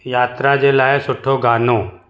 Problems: echo